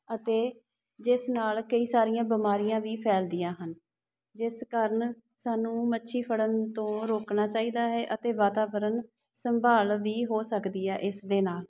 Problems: background sounds at intervals